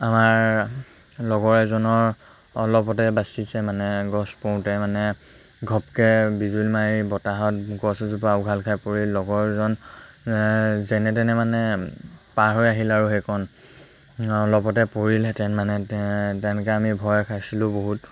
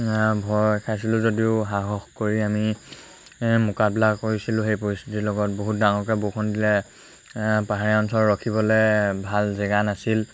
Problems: constant background noise